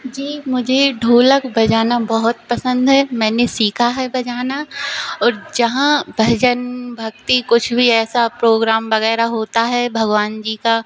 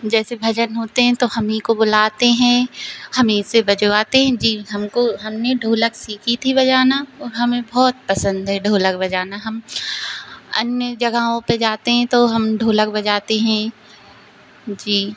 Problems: constant background noise